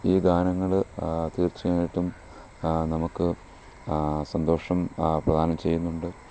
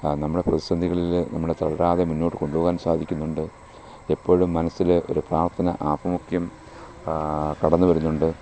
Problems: low volume